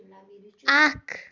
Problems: continuous background conversations